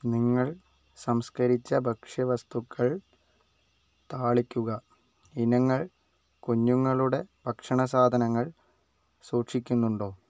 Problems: low volume